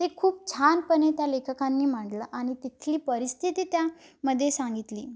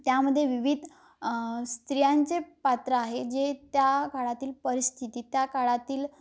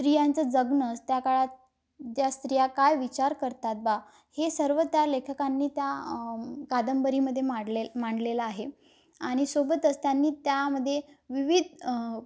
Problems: none marked